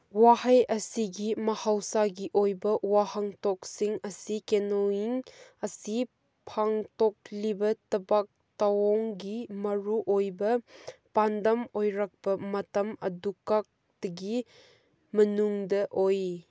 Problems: none marked